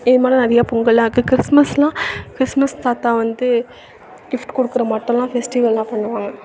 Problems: none marked